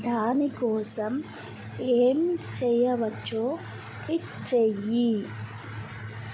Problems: none marked